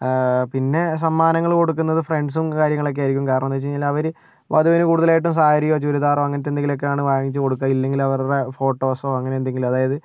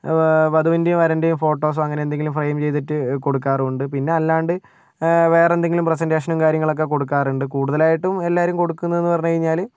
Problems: none marked